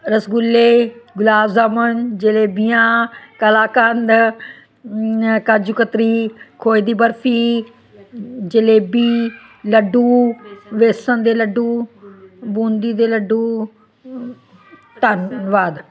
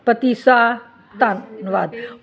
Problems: continuous background conversations